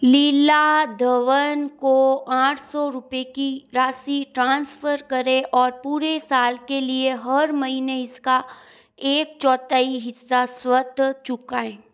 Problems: constant background noise